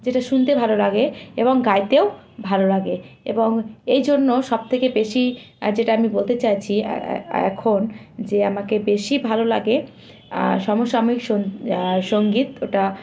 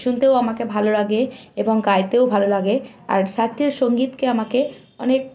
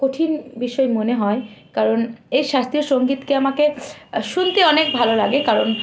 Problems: constant background noise